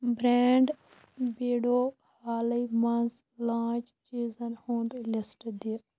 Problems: constant background noise, low volume